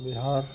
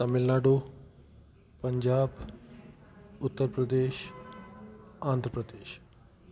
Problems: constant background noise